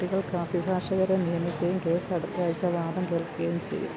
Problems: low volume